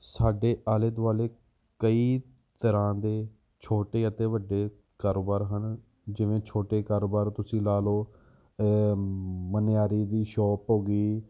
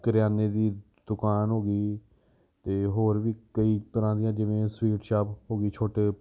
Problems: background sounds at intervals